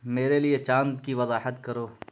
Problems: constant background noise